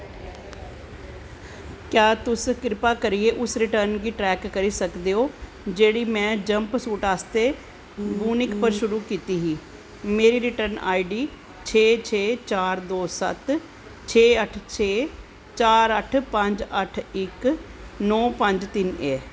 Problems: constant background noise